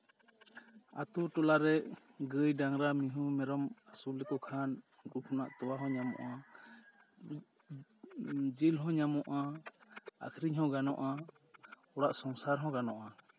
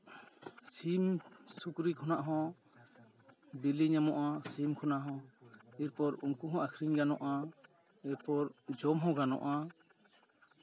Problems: none marked